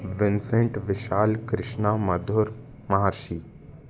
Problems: background sounds at intervals